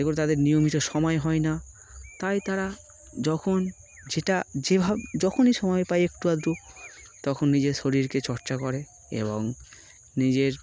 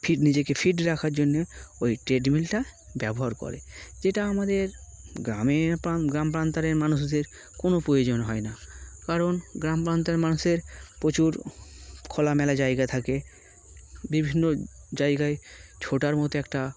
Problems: constant background noise